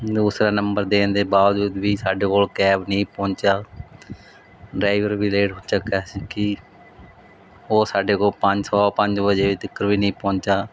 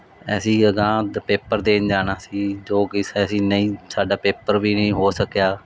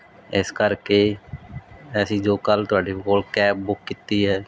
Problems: none marked